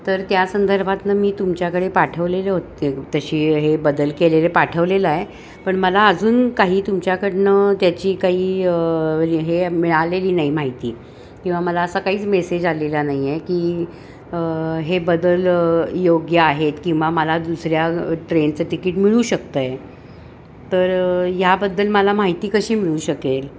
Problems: constant background noise, background conversations at intervals